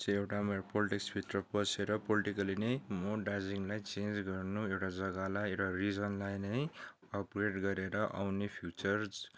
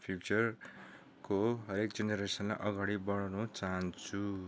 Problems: background sounds at intervals